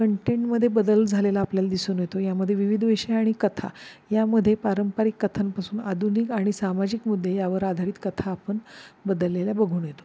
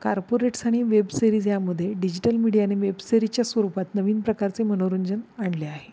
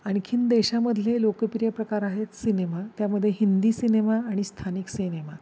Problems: background sounds at intervals